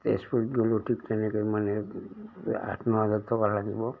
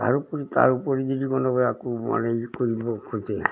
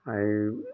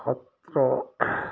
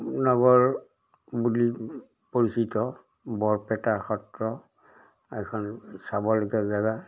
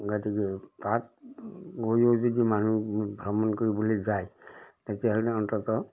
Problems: background sounds at intervals